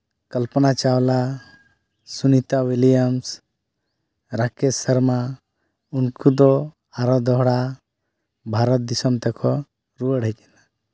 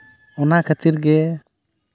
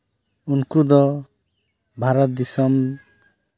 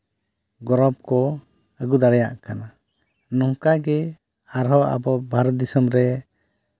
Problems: none marked